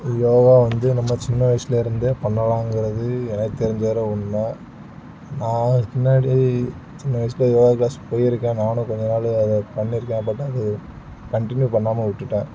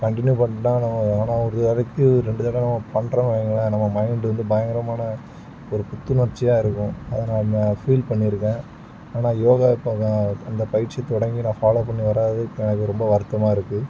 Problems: background sounds at intervals